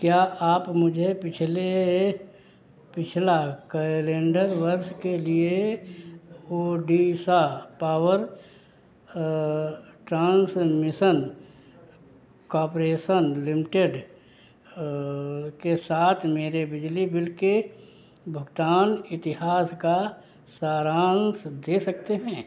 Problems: background sounds at intervals, echo